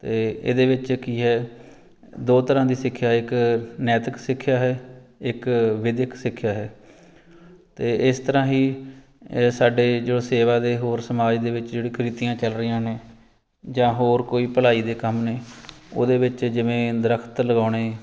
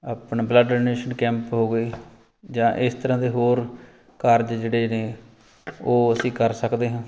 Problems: background sounds at intervals